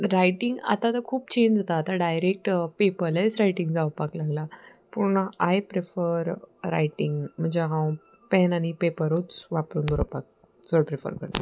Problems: background sounds at intervals